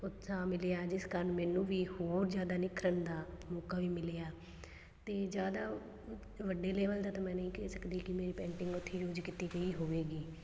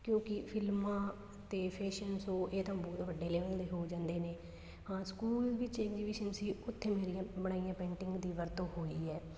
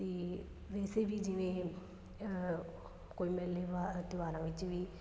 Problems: constant background noise